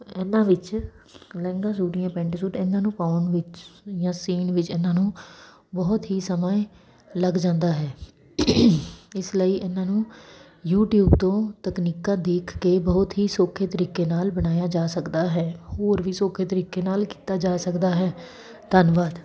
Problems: none marked